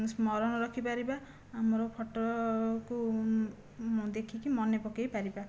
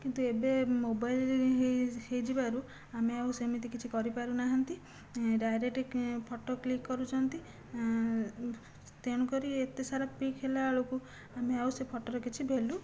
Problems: low volume